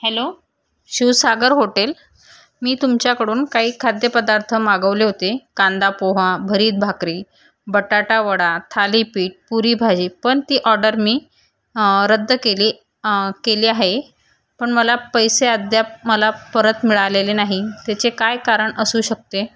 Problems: background sounds at intervals